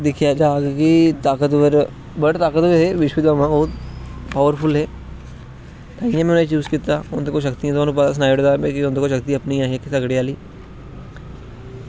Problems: none marked